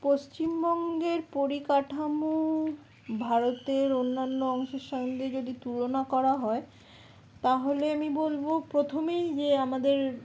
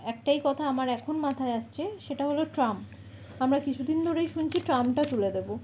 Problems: background conversations at intervals